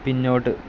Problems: constant background noise